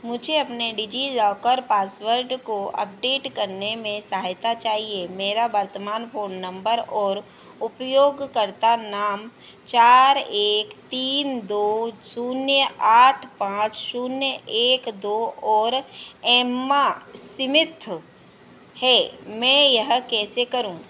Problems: none marked